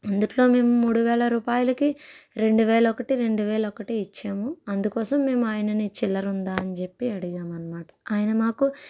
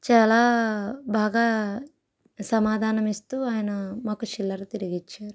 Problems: background sounds at intervals